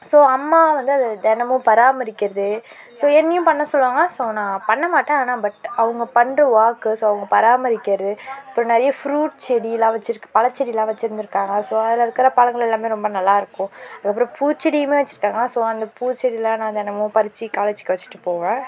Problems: none marked